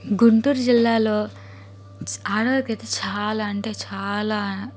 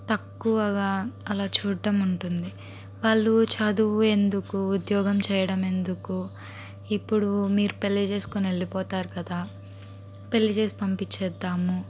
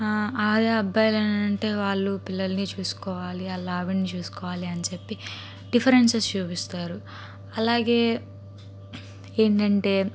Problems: constant background noise